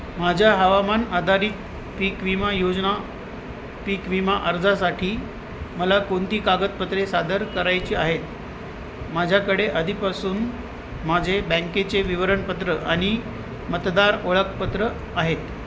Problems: constant background noise